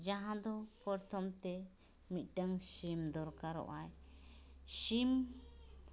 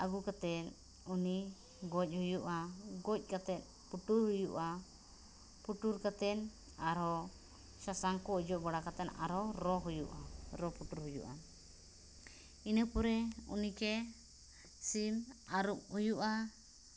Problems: constant background noise